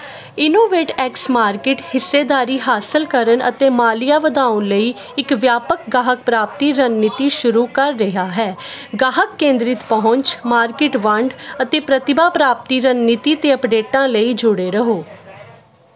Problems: continuous background conversations